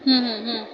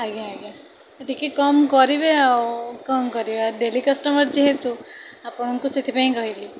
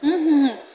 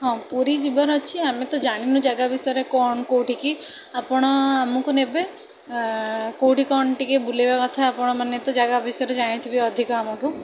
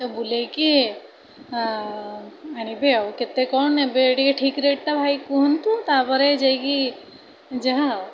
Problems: continuous background conversations